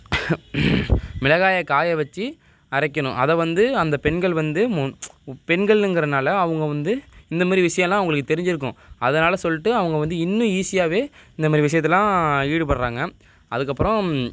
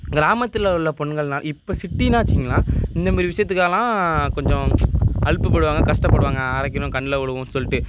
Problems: background sounds at intervals